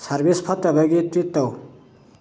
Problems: background sounds at intervals